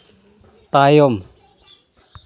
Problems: none marked